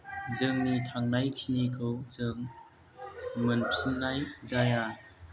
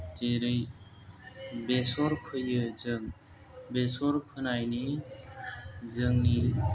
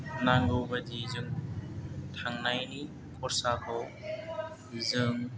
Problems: low volume